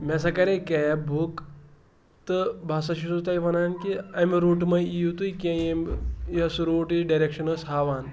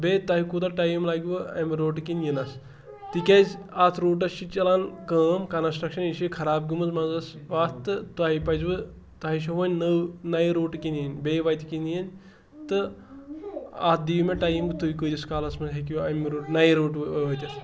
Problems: background sounds at intervals